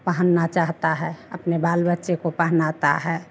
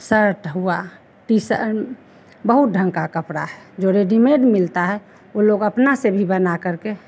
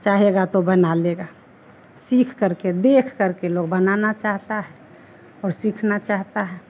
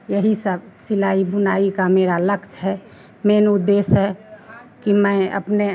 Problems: none marked